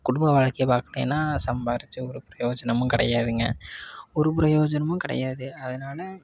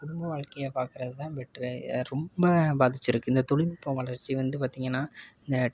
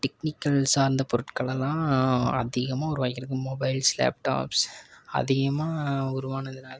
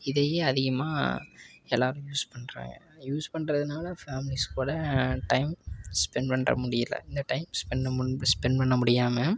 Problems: constant background noise, background conversations at intervals